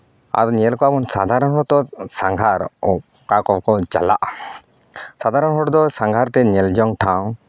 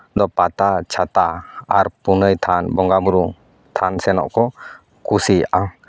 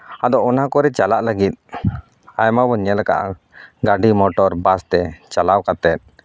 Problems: none marked